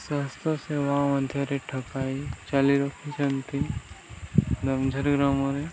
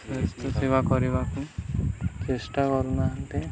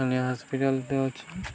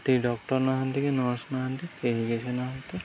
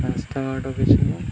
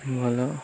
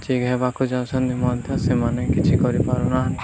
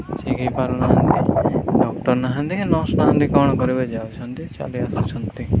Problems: none marked